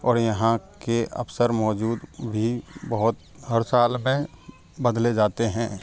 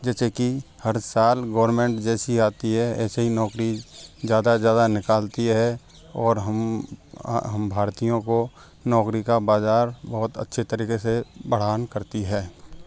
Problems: background sounds at intervals